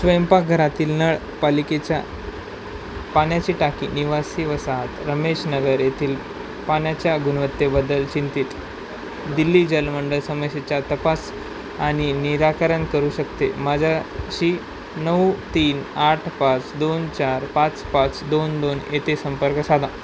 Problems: constant background noise